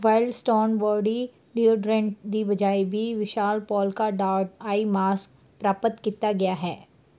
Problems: none marked